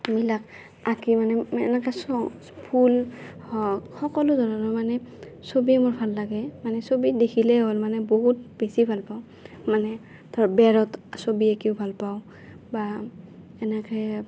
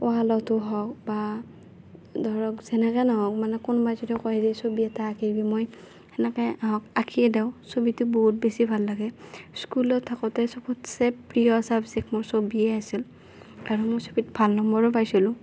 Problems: none marked